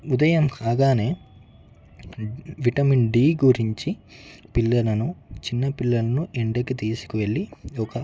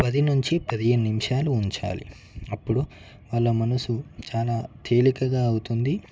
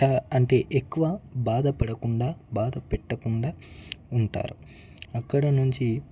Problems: background sounds at intervals, background conversations at intervals